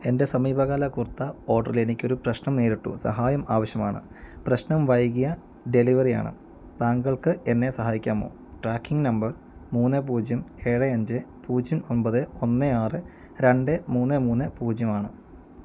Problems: none marked